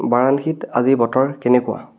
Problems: background sounds at intervals, background conversations at intervals